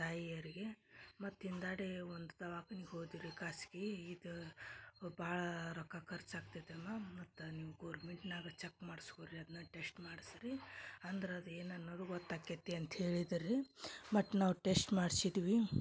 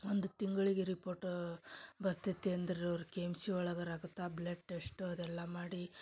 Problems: low volume